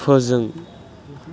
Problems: constant background noise